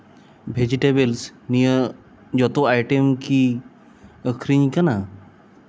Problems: none marked